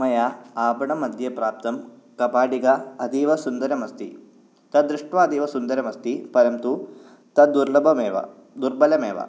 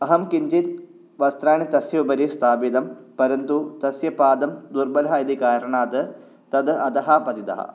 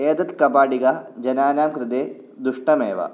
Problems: none marked